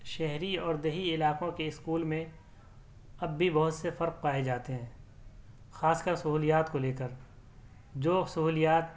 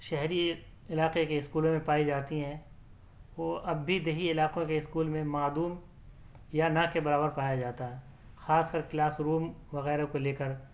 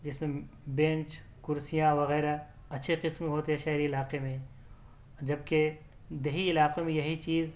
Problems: none marked